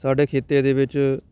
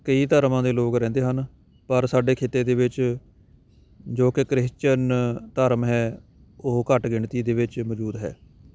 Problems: background sounds at intervals